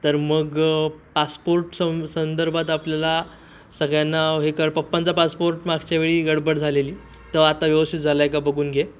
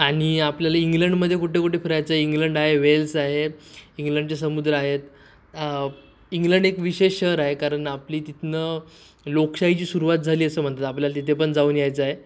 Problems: constant background noise